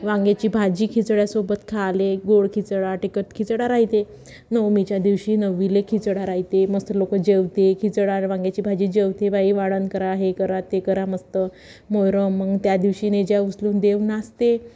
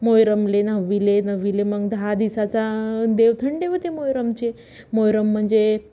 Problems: background sounds at intervals, background conversations at intervals